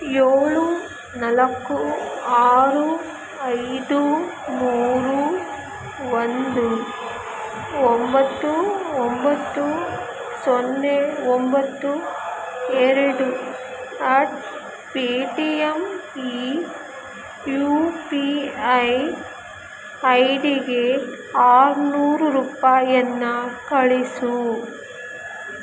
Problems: constant background noise